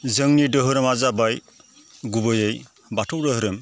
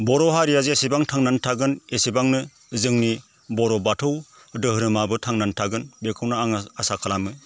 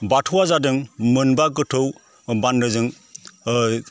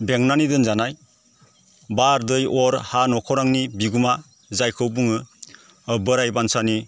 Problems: constant background noise